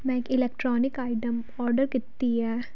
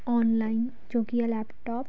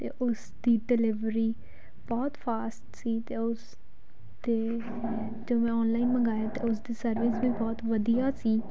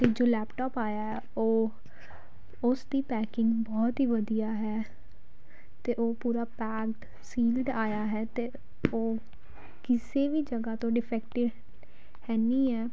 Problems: background sounds at intervals